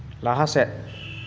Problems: none marked